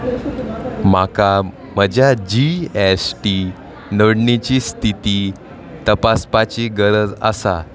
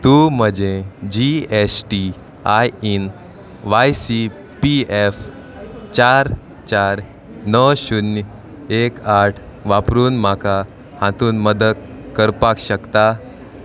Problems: none marked